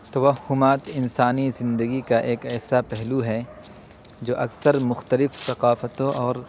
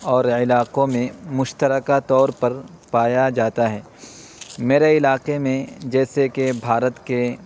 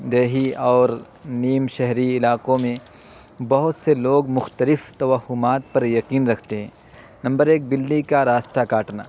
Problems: constant background noise